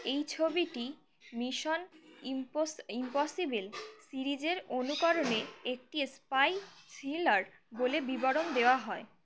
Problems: background sounds at intervals